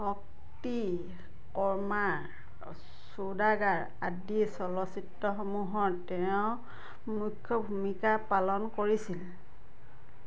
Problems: none marked